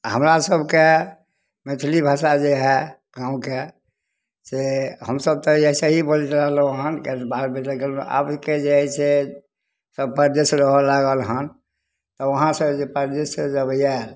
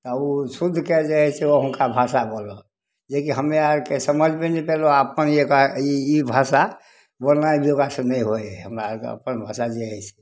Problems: none marked